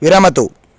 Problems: none marked